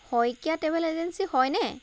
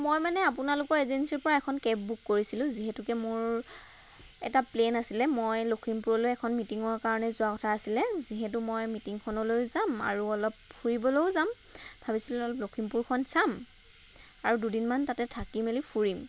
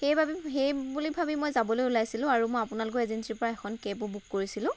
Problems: constant background noise